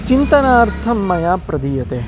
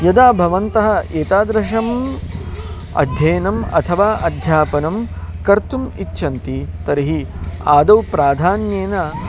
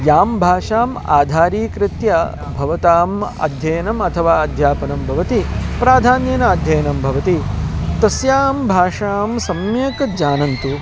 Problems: constant background noise, continuous background conversations